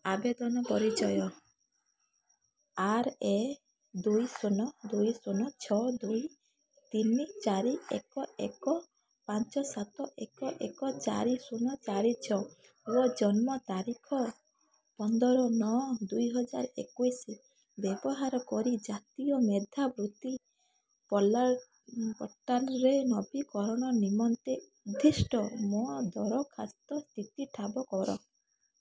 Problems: constant background noise